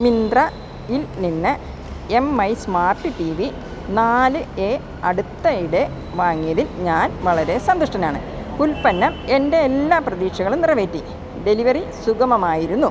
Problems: constant background noise